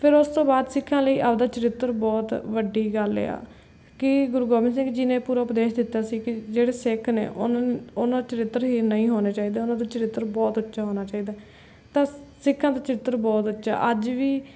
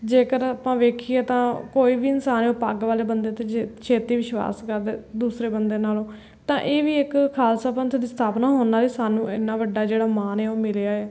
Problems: none marked